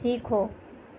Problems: constant background noise